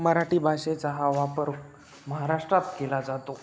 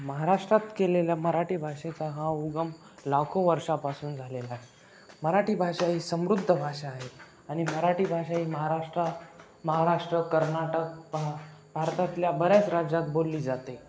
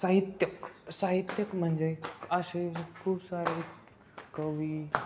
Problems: constant background noise, continuous background conversations